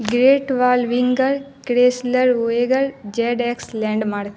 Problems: constant background noise